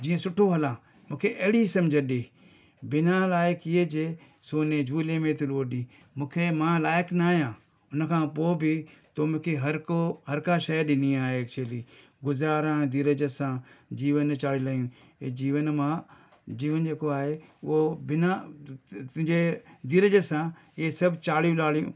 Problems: none marked